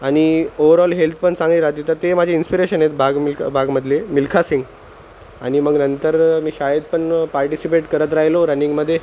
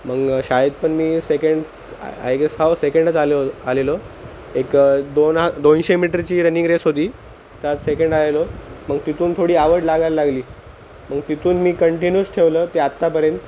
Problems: none marked